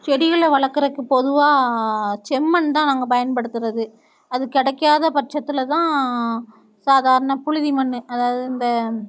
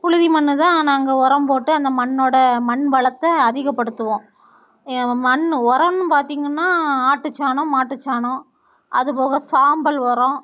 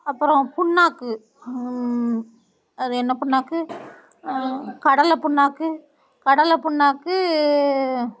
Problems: none marked